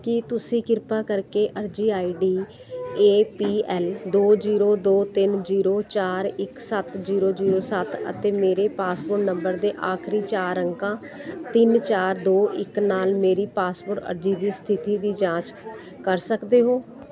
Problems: constant background noise